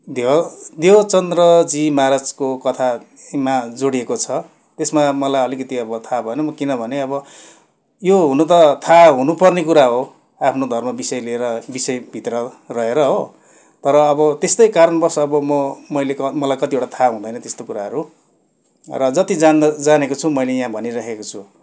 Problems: constant background noise